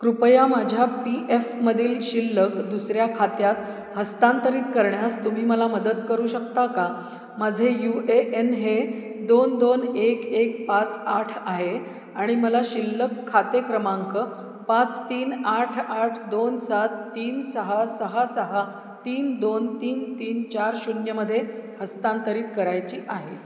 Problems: none marked